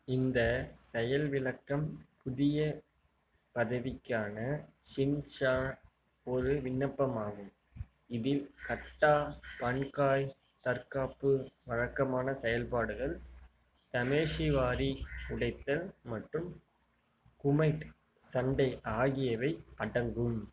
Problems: low volume